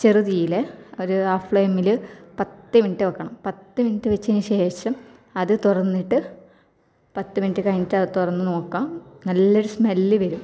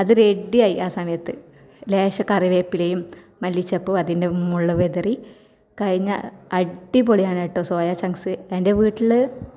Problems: none marked